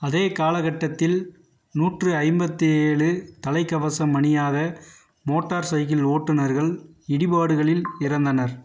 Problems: background sounds at intervals